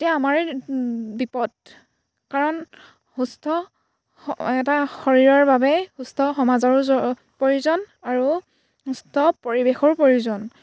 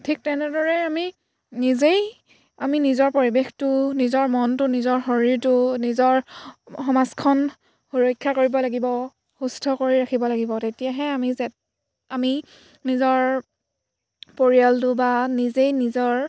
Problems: background sounds at intervals